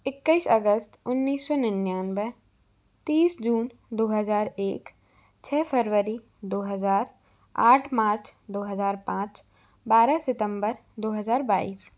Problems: constant background noise